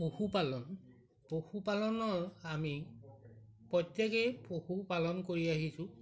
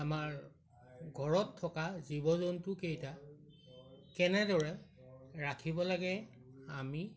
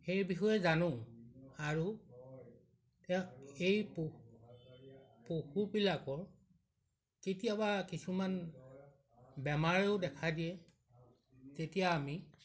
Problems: background sounds at intervals